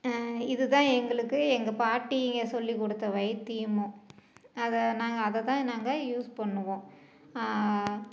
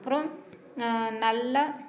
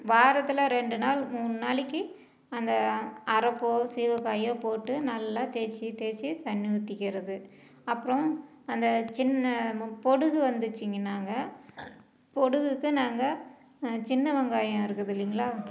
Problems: background conversations at intervals, low volume